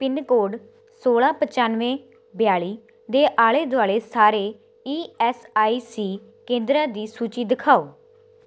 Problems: none marked